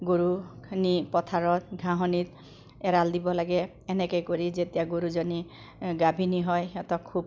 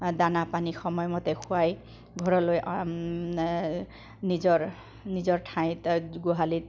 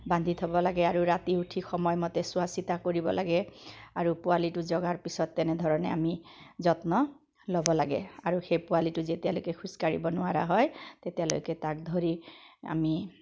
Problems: background sounds at intervals, echo